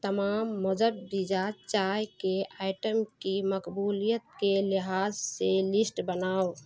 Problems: constant background noise